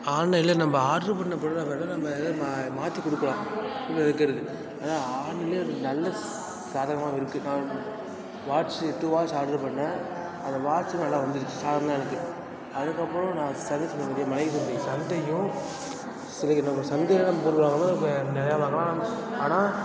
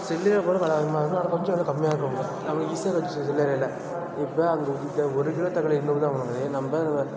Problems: background sounds at intervals